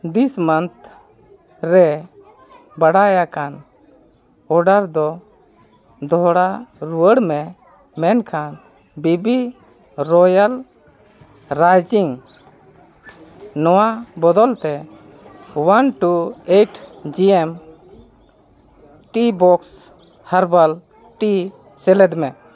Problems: constant background noise